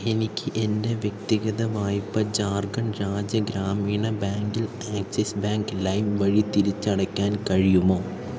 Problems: none marked